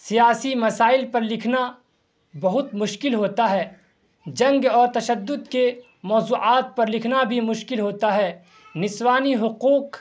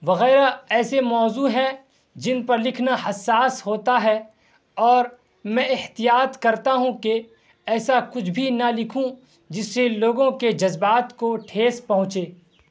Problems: constant background noise